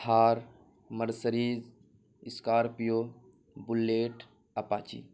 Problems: constant background noise